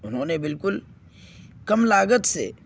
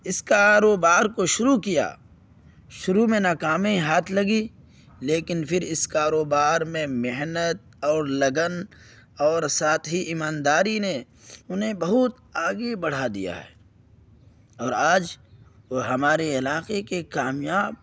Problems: none marked